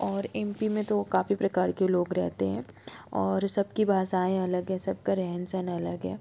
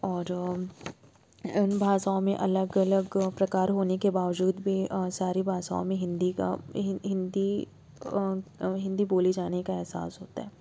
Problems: background sounds at intervals